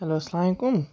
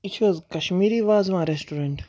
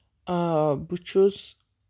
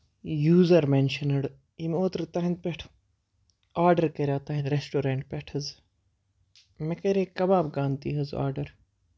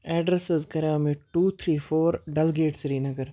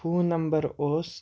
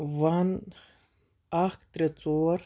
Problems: background sounds at intervals